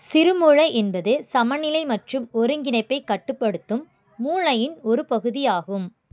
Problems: none marked